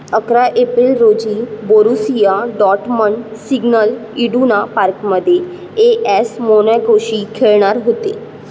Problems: constant background noise